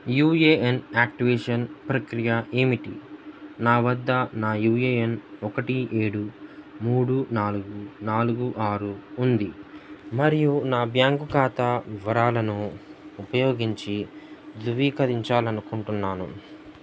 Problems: none marked